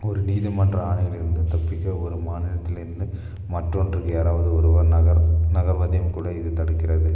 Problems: background sounds at intervals, low volume